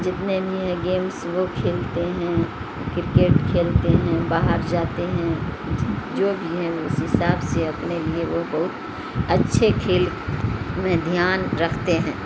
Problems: constant background noise